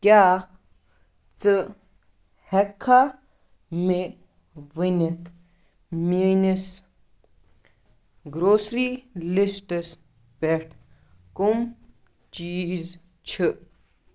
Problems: none marked